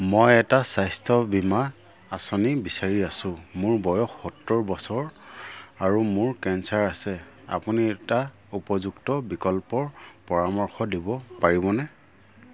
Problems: low volume